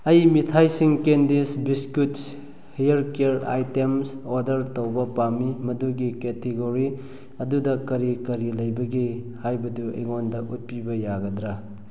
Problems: none marked